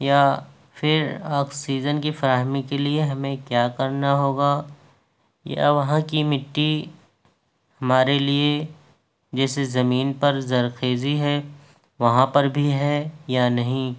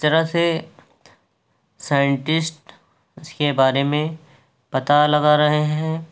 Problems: background sounds at intervals